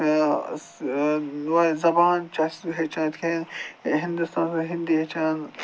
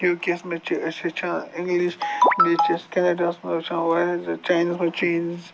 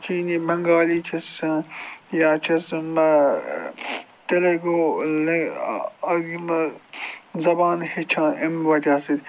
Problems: constant background noise